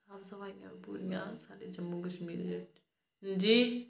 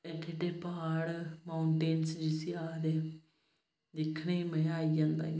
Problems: background conversations at intervals